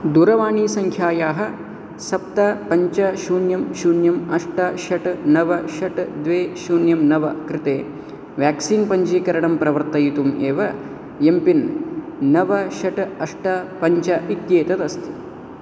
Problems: constant background noise